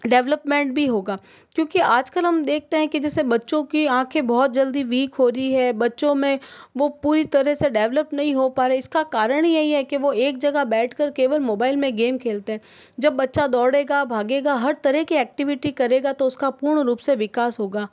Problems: background sounds at intervals